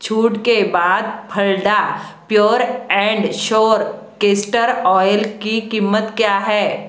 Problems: none marked